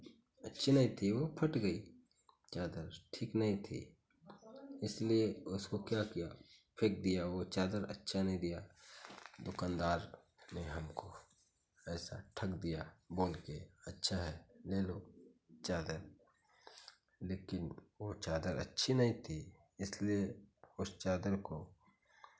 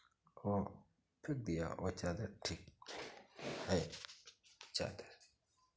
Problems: background sounds at intervals, continuous background conversations